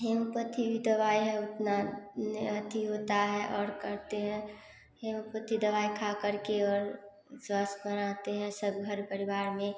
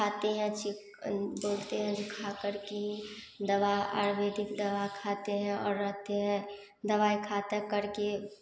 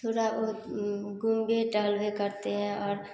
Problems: constant background noise